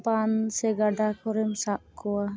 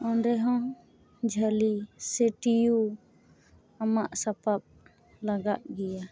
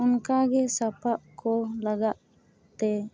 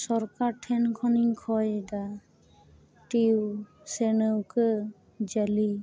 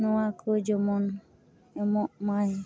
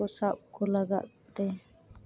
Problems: constant background noise